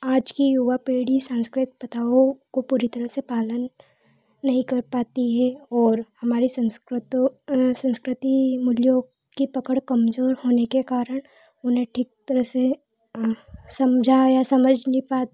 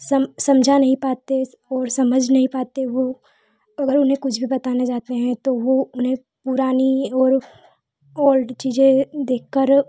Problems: constant background noise